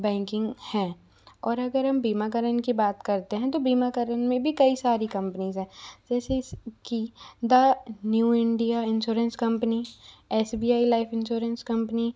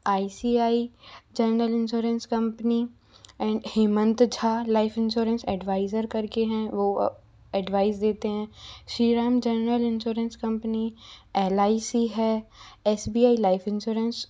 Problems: constant background noise